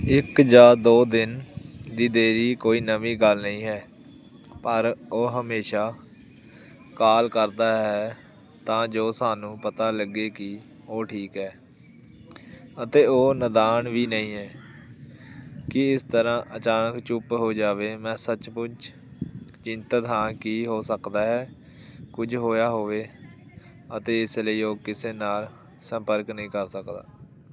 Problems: none marked